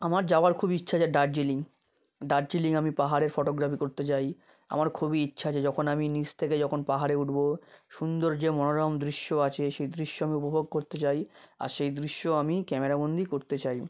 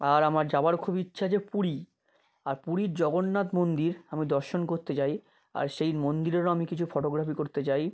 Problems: constant background noise